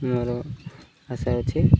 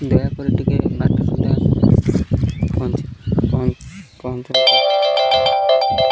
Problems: constant background noise